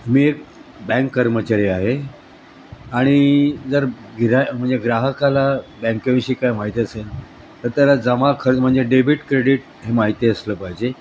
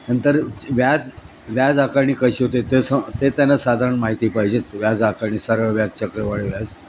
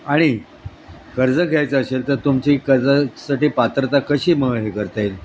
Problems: constant background noise, background conversations at intervals